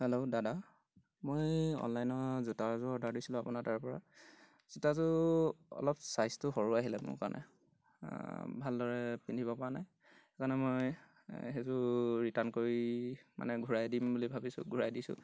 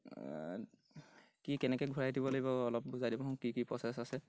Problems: background sounds at intervals